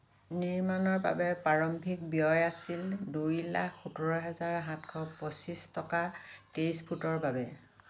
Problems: none marked